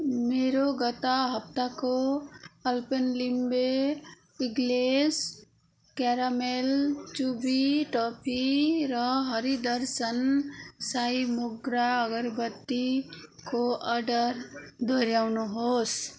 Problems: none marked